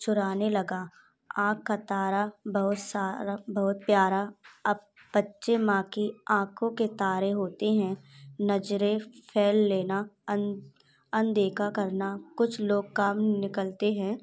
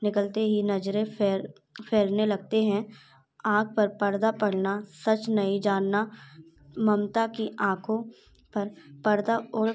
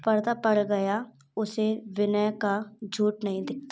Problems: background sounds at intervals